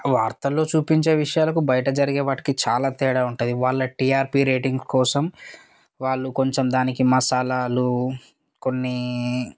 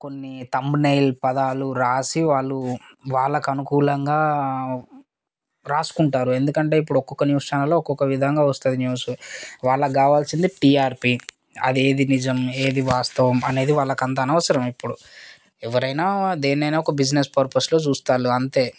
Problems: background sounds at intervals